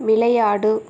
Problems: constant background noise